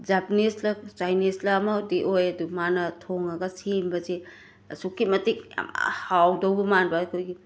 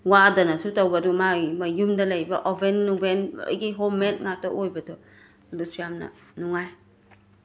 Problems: background sounds at intervals